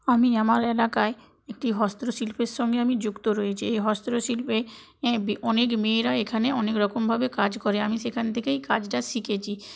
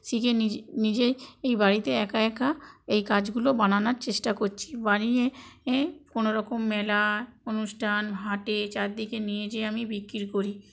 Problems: none marked